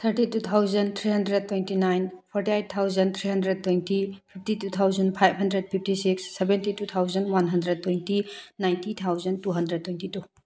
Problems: none marked